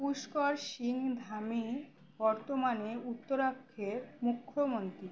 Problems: background sounds at intervals